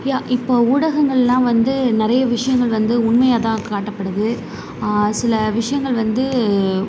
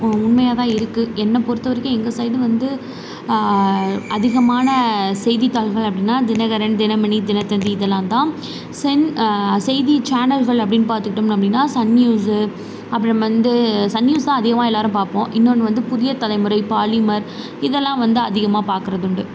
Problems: constant background noise